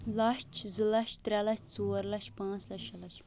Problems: constant background noise